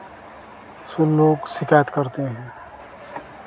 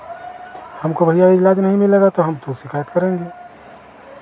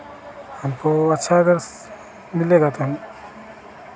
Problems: none marked